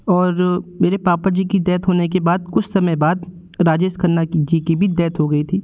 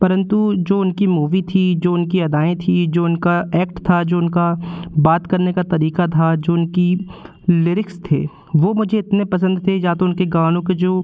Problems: constant background noise